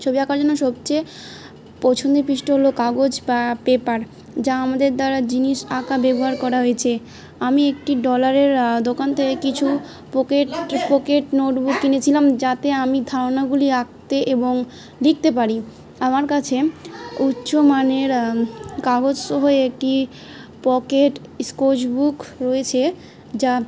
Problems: background sounds at intervals